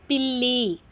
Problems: constant background noise, continuous background conversations